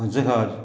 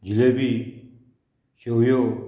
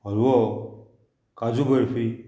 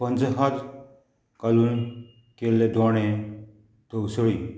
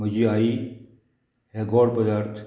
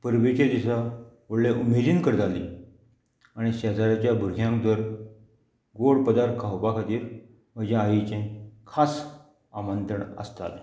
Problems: background sounds at intervals